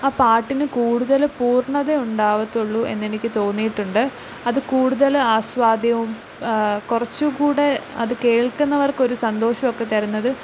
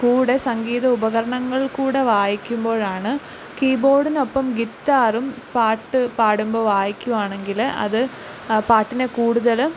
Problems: low volume